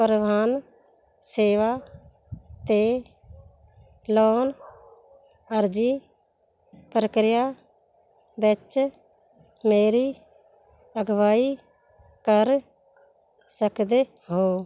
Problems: background sounds at intervals